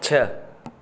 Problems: constant background noise